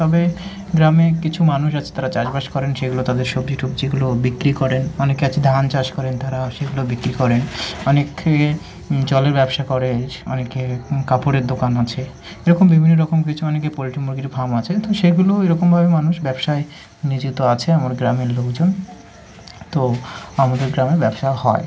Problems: constant background noise